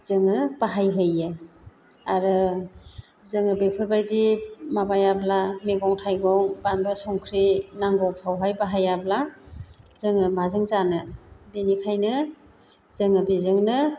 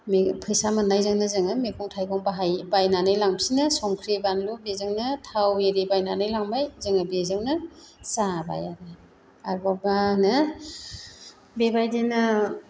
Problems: constant background noise